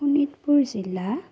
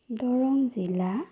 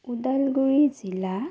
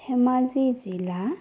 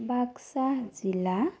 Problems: none marked